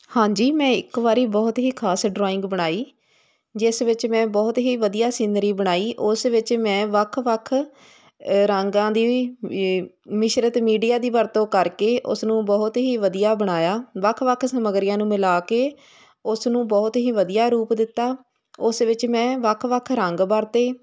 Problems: constant background noise